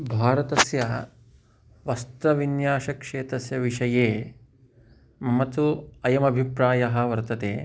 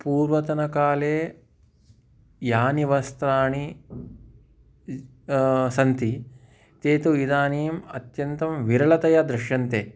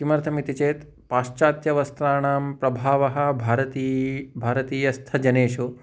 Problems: constant background noise